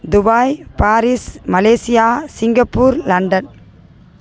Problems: background conversations at intervals